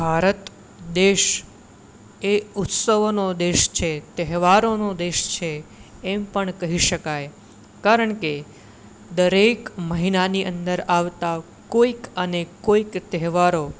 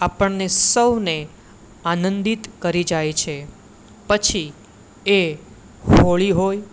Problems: none marked